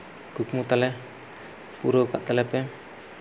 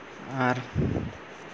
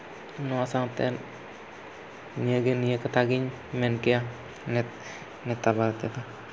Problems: none marked